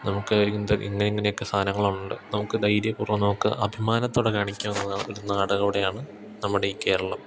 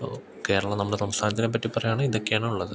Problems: none marked